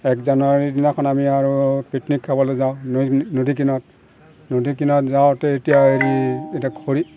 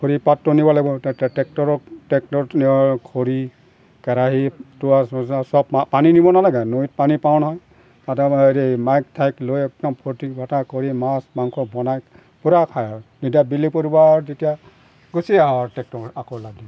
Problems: background sounds at intervals